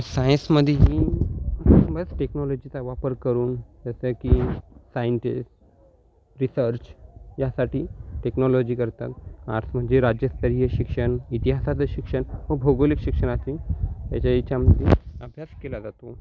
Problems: none marked